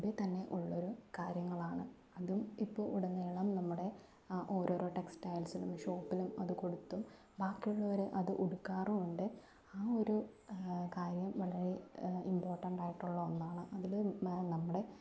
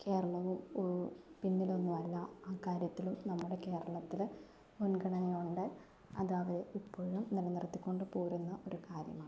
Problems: low volume